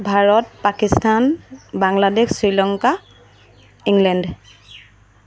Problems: constant background noise